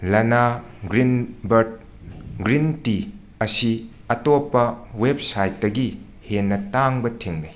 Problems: constant background noise, background conversations at intervals